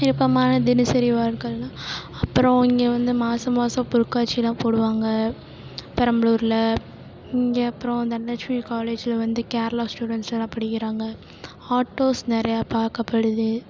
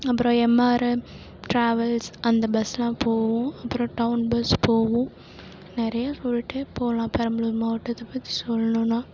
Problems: constant background noise